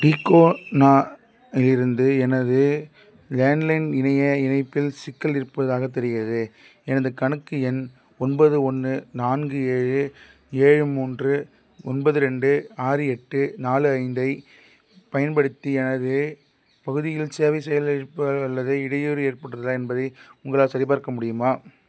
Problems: none marked